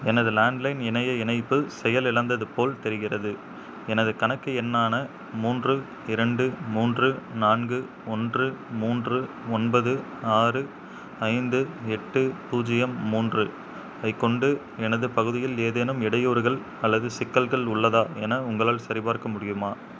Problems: background sounds at intervals